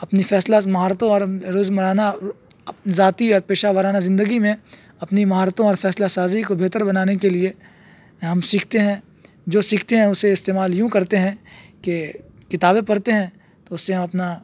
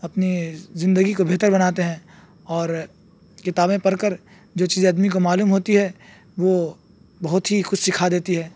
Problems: background sounds at intervals